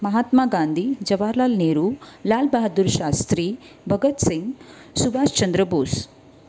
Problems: none marked